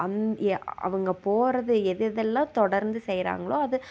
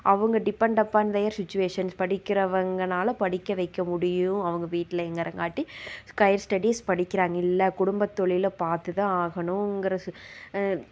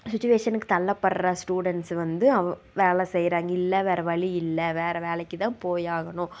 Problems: constant background noise